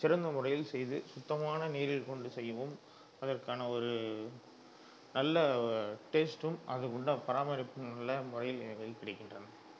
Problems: none marked